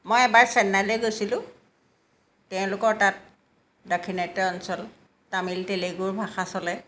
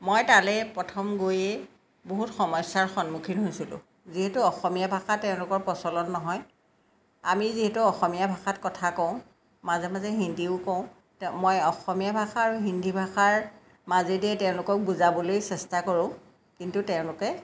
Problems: background sounds at intervals